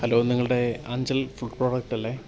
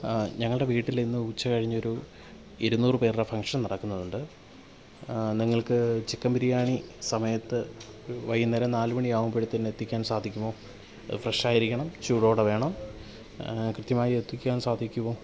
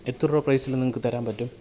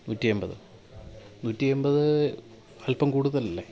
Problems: low volume